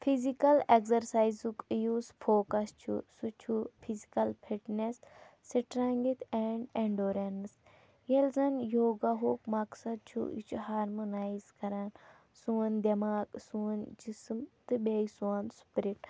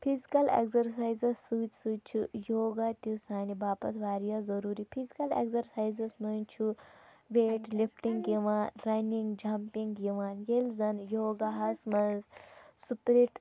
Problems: background sounds at intervals, low volume